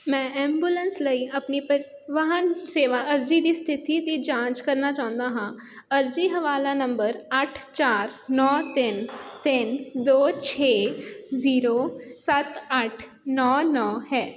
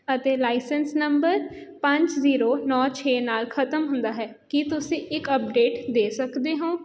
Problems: background sounds at intervals